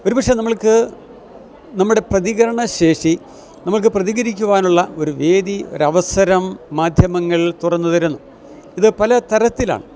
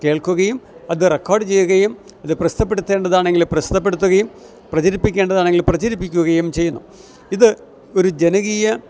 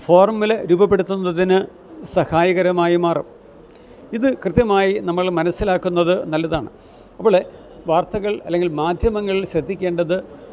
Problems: none marked